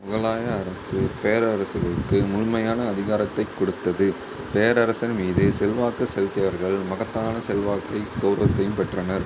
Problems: constant background noise